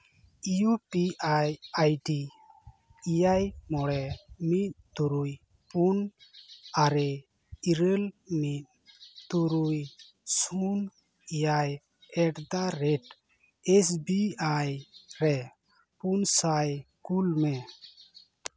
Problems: background conversations at intervals